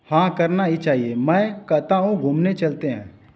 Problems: none marked